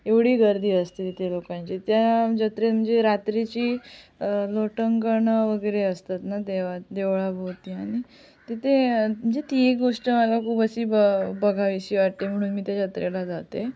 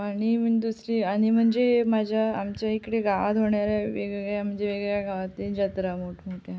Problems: none marked